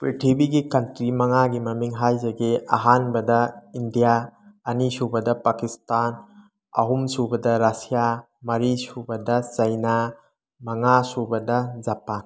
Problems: none marked